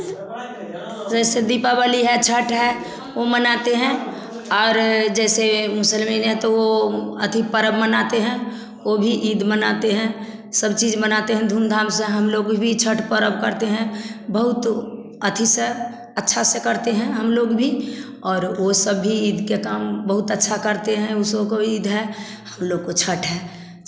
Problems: constant background noise, background conversations at intervals, echo